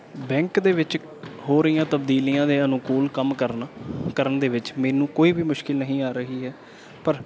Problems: background sounds at intervals